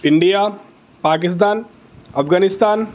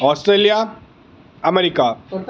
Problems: constant background noise